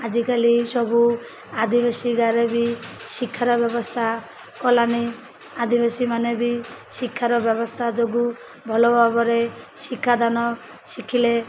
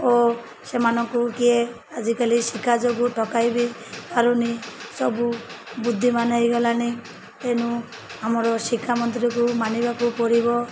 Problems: constant background noise